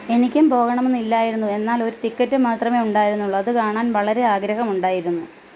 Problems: constant background noise